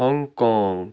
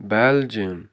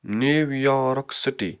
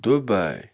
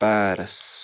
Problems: none marked